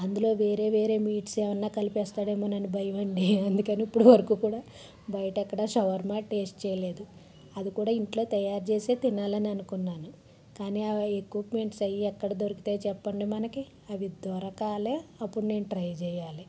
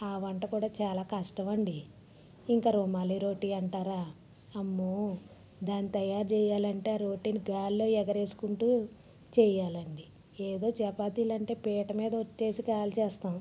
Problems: background sounds at intervals, low volume